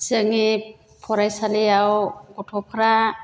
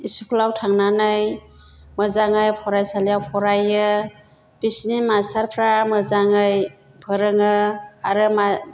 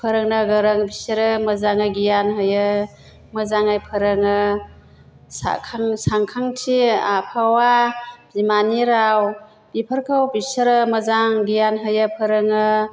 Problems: none marked